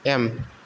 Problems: none marked